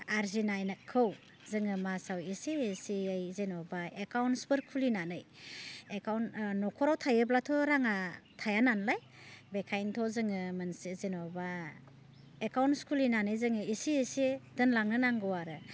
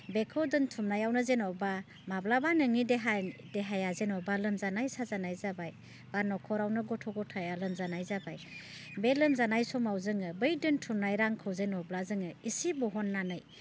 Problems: constant background noise